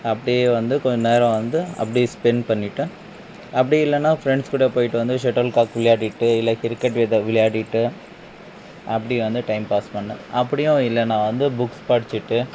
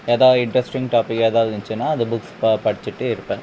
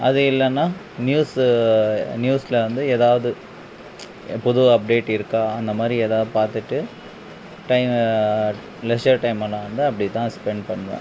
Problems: background sounds at intervals